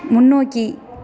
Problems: background sounds at intervals